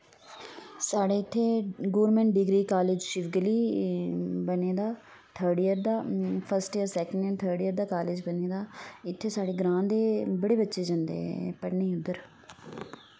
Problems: none marked